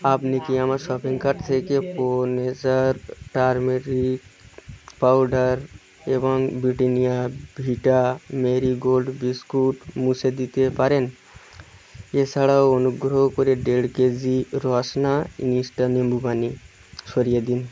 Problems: none marked